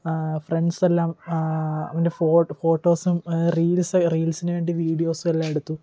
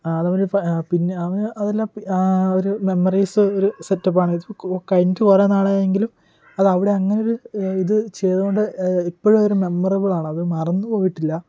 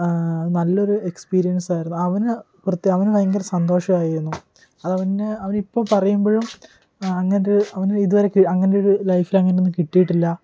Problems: none marked